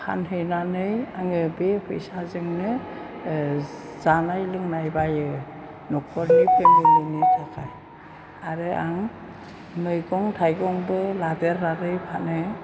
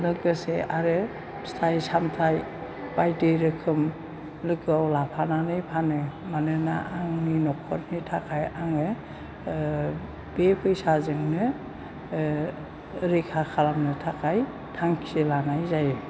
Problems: background sounds at intervals